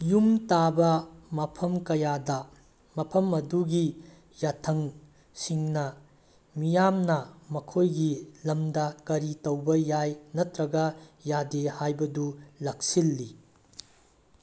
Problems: none marked